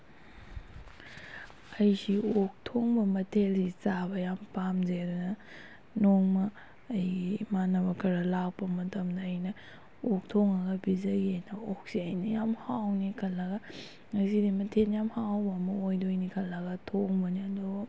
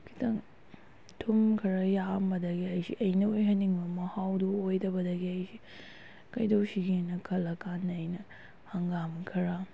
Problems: none marked